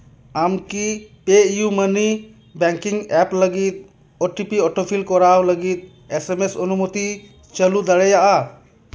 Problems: none marked